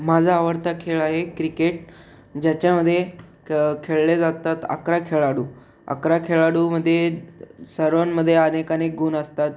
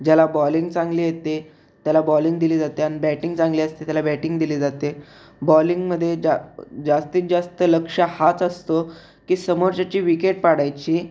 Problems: none marked